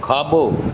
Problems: constant background noise